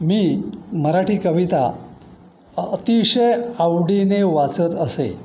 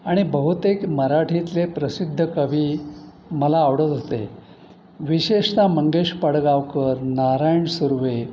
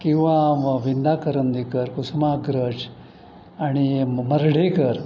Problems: constant background noise